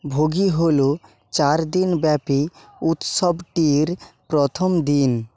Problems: background sounds at intervals